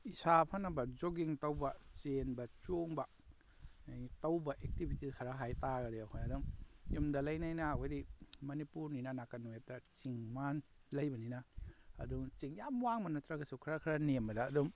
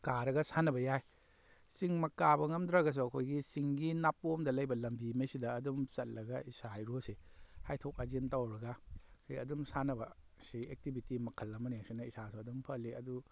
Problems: none marked